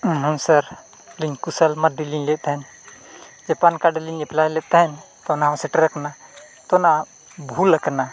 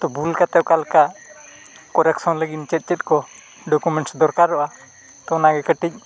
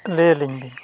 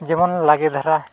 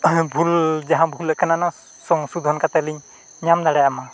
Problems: constant background noise, continuous background conversations